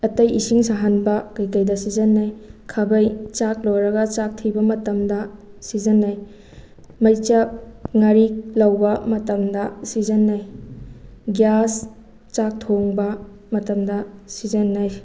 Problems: none marked